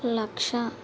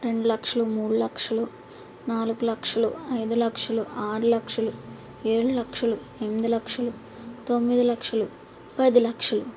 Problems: constant background noise